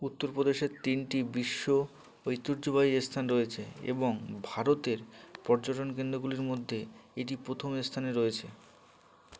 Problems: none marked